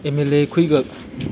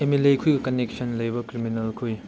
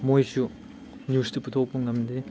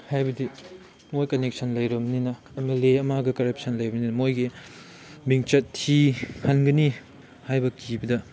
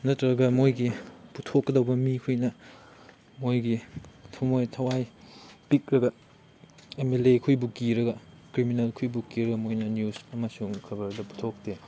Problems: background sounds at intervals